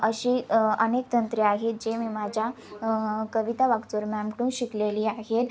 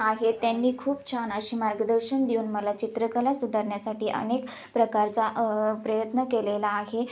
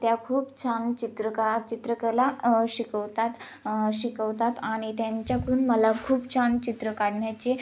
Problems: constant background noise, background conversations at intervals